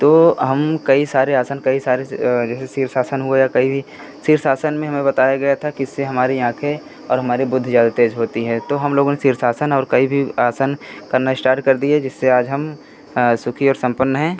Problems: constant background noise